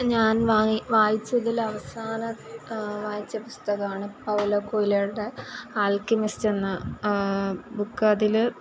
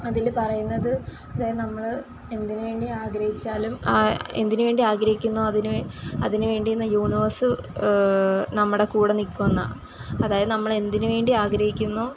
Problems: constant background noise